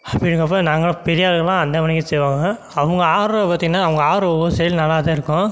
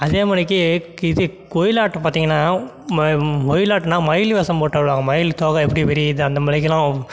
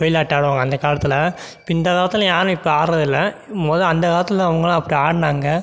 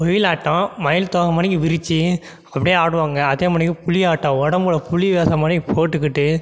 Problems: none marked